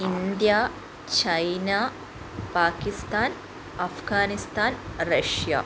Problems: none marked